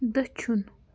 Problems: constant background noise